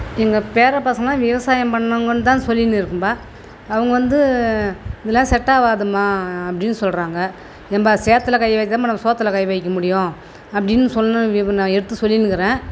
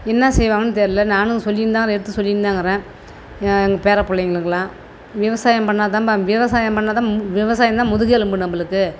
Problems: none marked